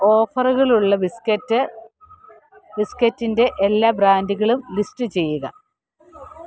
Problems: none marked